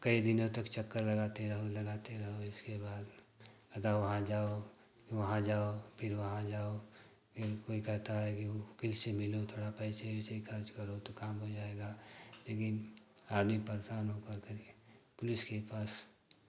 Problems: constant background noise